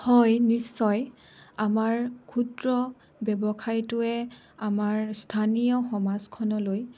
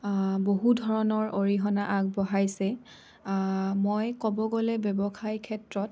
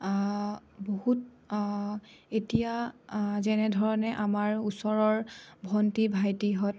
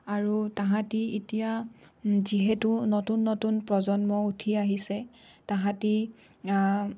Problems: none marked